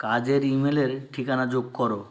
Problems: constant background noise